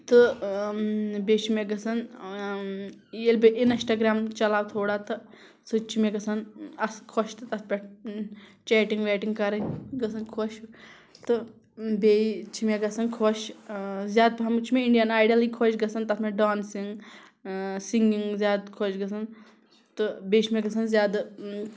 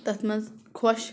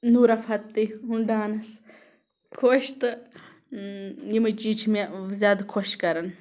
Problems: background sounds at intervals